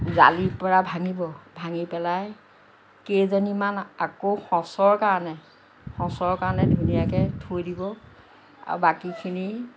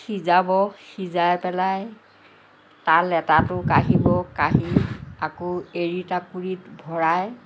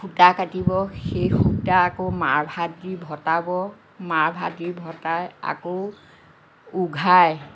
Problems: none marked